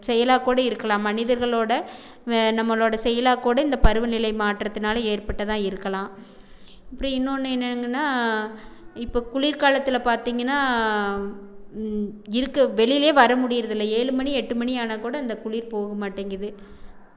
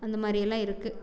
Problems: background sounds at intervals